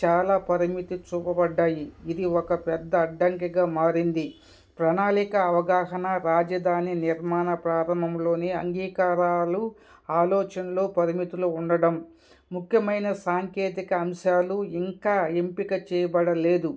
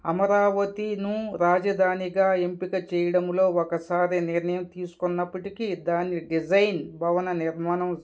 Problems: background sounds at intervals, background conversations at intervals